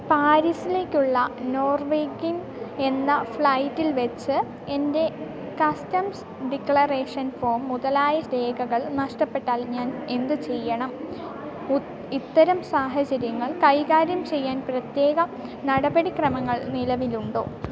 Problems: background sounds at intervals